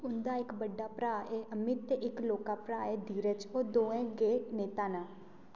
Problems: low volume